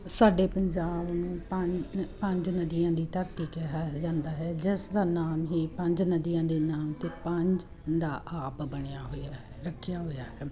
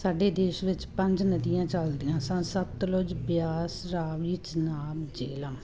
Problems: constant background noise